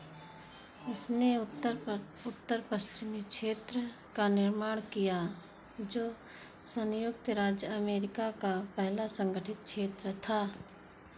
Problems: constant background noise